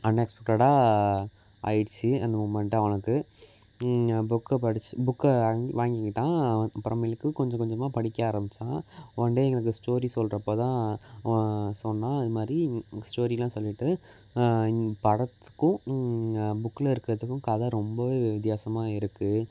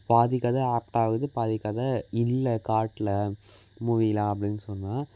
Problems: none marked